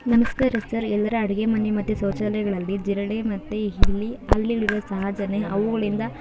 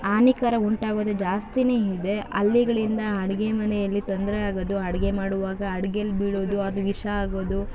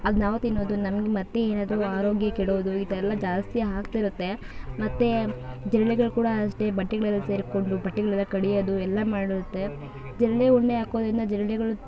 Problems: background sounds at intervals